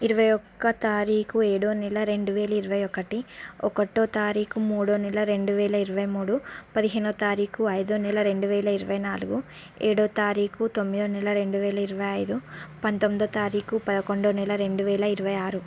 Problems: none marked